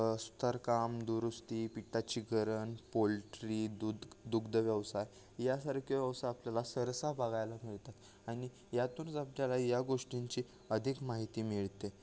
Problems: background sounds at intervals